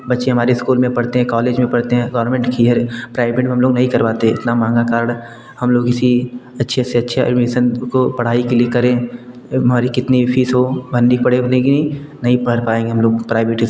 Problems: none marked